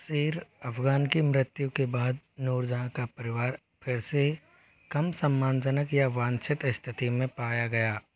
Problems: none marked